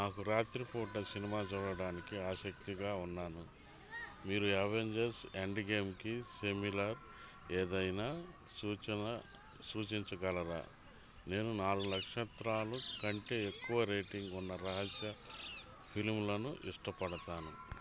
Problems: constant background noise, background conversations at intervals